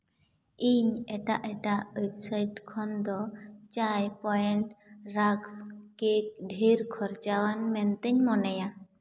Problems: none marked